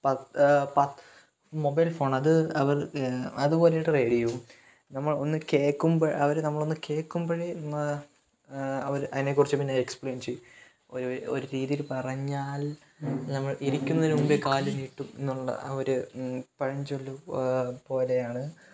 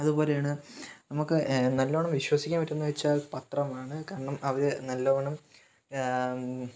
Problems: background sounds at intervals, low volume